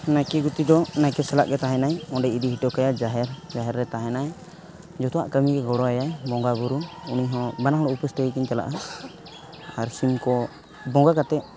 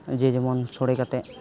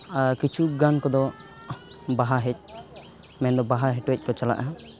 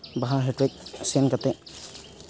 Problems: none marked